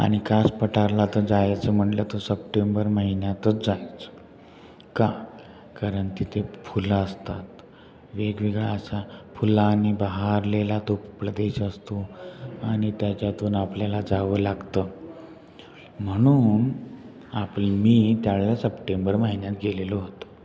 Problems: constant background noise